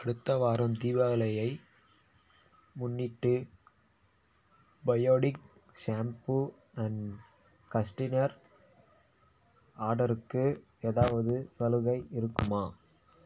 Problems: low volume